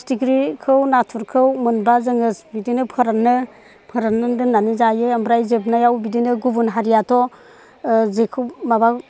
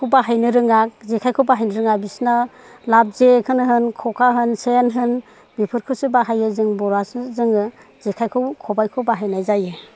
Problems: none marked